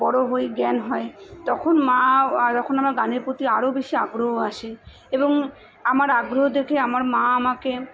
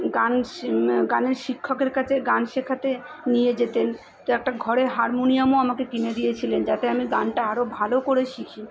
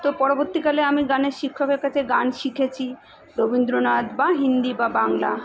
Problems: continuous background conversations